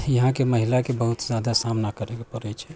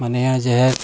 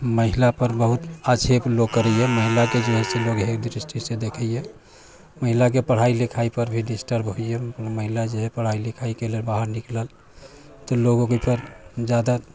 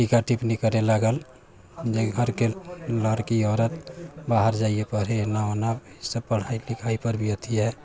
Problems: background sounds at intervals